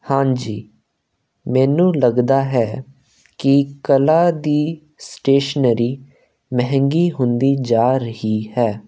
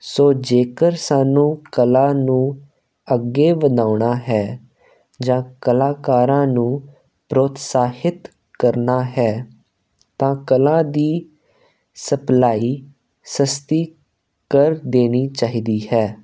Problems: constant background noise